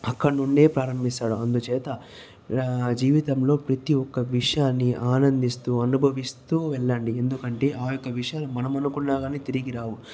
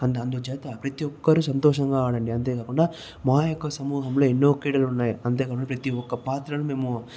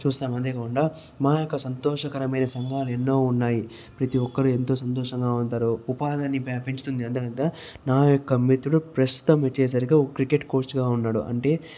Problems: none marked